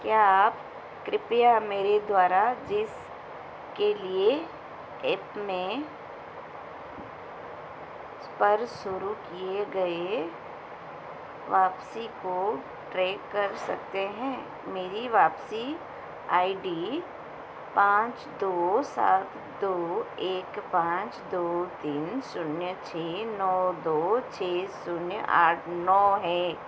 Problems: constant background noise